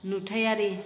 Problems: none marked